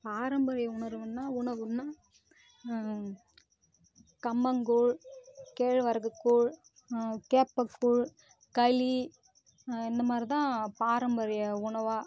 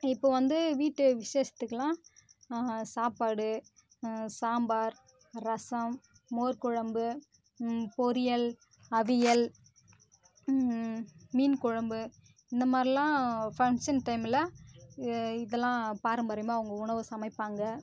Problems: constant background noise